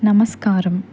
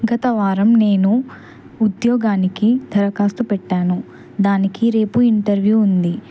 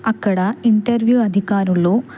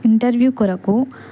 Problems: constant background noise